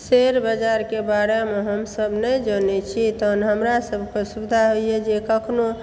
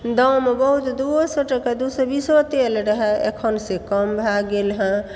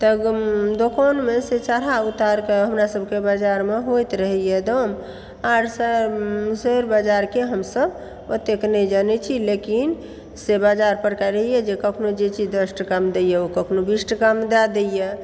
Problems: background sounds at intervals